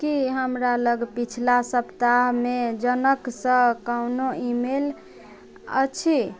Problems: none marked